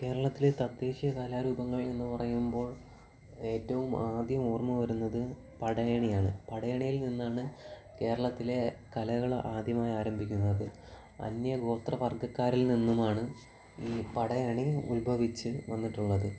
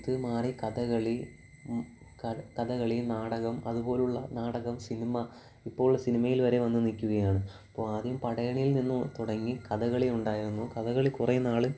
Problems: background sounds at intervals, low volume